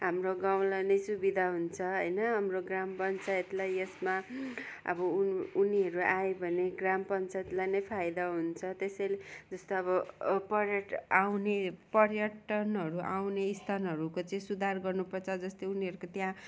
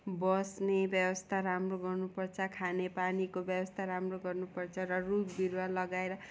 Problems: background sounds at intervals